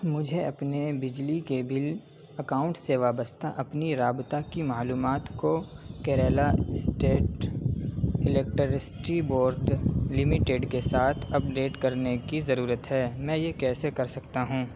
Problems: constant background noise, low volume